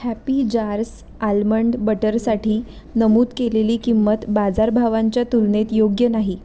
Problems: none marked